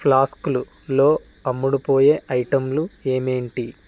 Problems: none marked